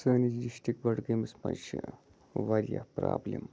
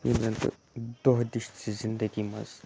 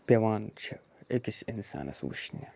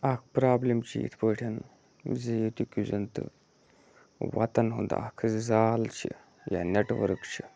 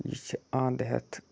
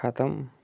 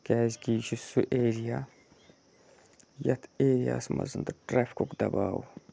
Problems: low volume